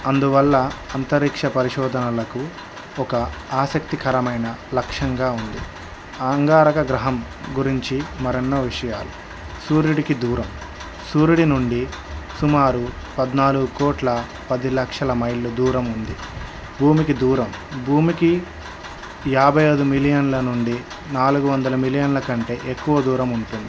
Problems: background sounds at intervals